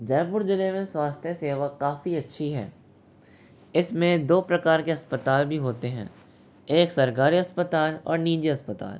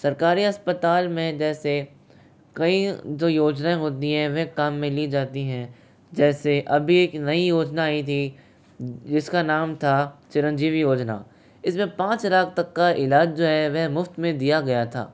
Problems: constant background noise